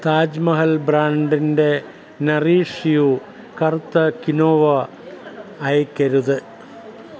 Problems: none marked